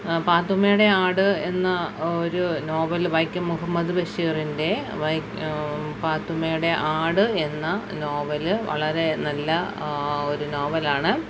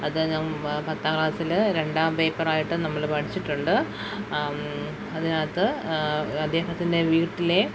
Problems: constant background noise